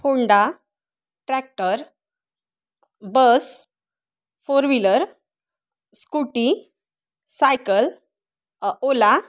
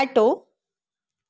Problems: none marked